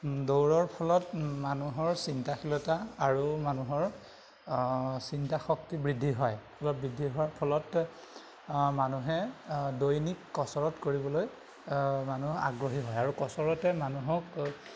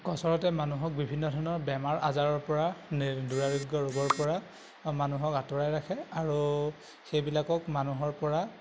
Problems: constant background noise